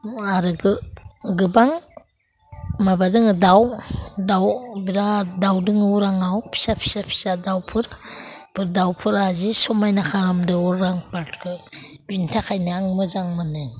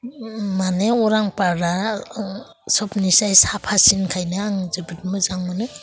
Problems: constant background noise